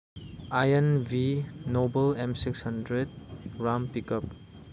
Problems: none marked